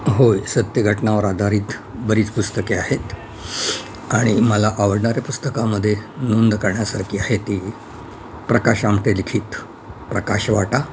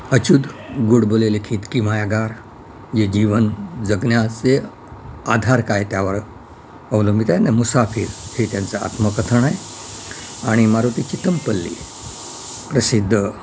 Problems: none marked